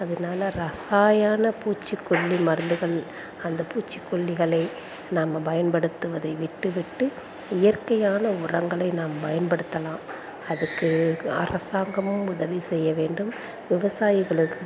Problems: none marked